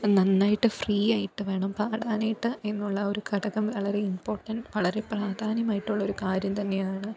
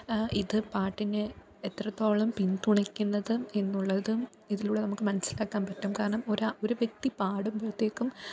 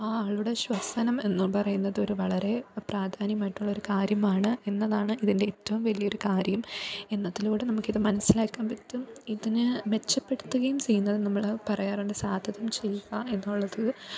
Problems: background conversations at intervals, low volume